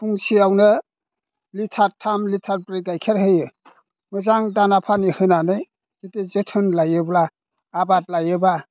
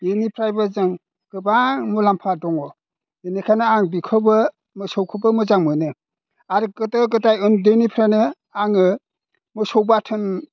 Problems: none marked